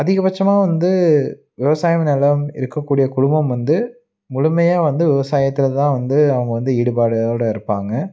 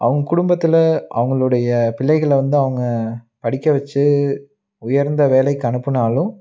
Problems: none marked